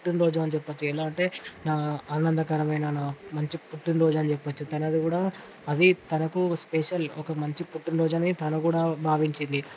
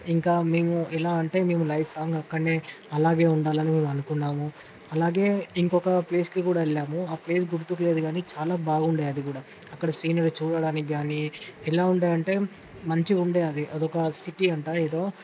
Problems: constant background noise